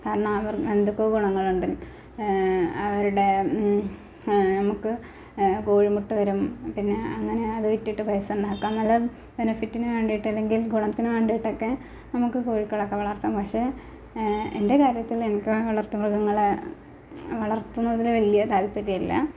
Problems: background sounds at intervals, low volume